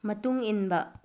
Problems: low volume